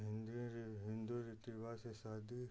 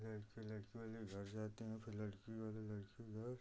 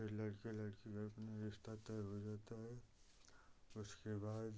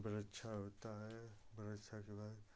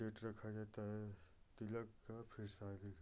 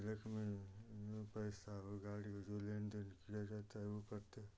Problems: none marked